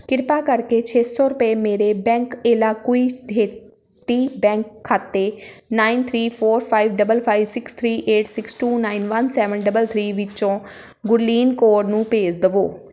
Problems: constant background noise